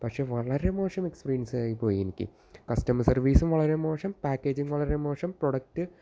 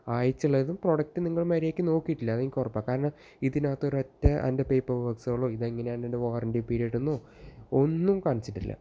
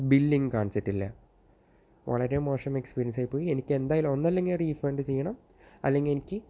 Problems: low volume